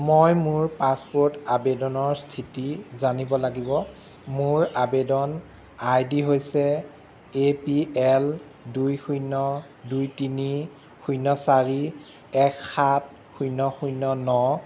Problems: constant background noise